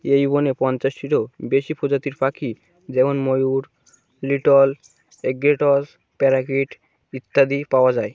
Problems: none marked